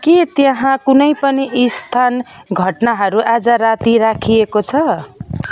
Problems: constant background noise, continuous background conversations